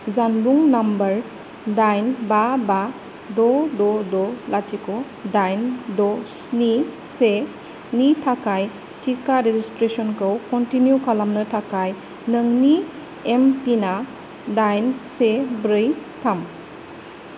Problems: low volume